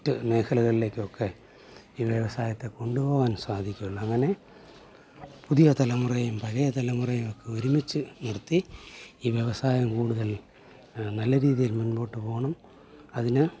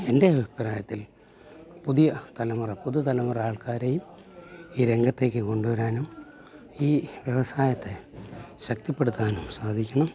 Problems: low volume